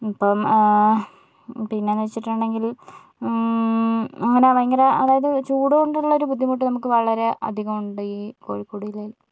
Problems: none marked